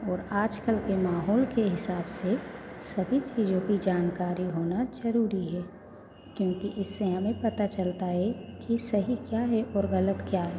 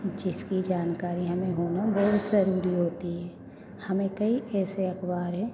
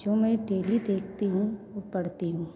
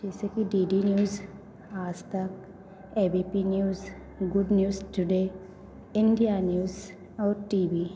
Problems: constant background noise, background conversations at intervals